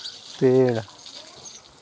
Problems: none marked